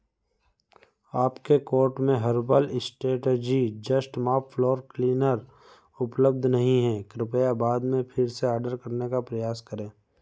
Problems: background sounds at intervals